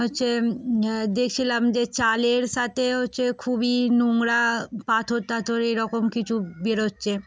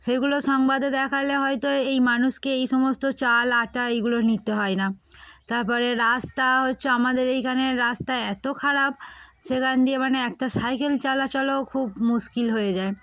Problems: none marked